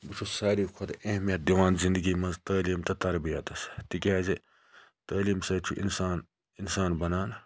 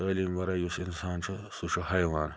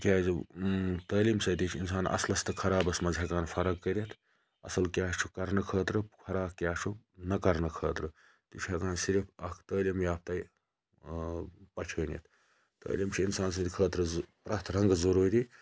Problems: background sounds at intervals, low volume